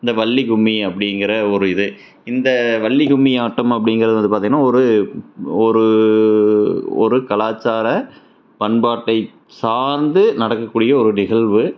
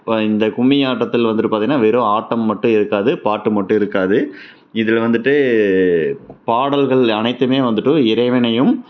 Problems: none marked